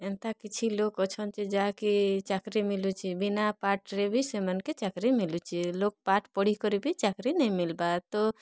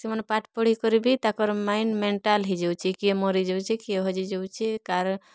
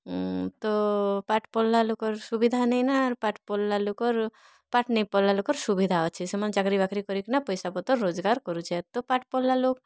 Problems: none marked